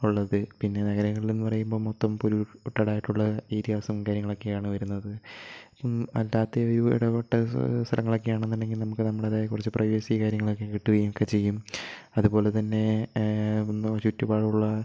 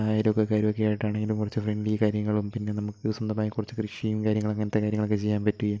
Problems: low volume